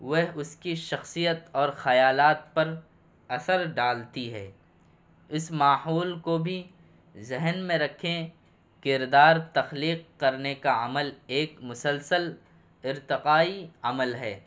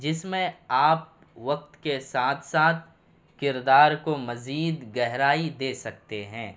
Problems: constant background noise